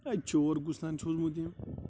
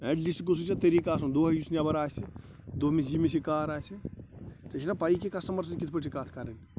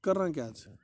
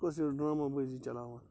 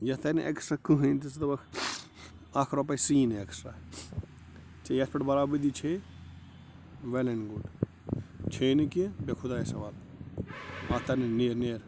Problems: constant background noise